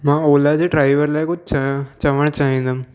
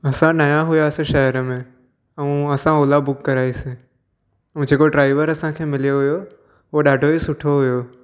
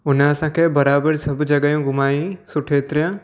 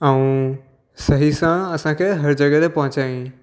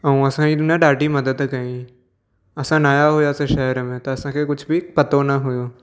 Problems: none marked